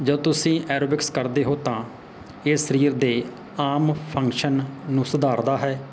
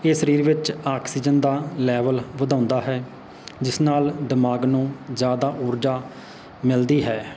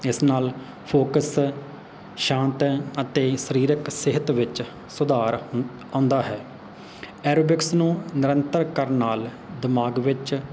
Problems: background sounds at intervals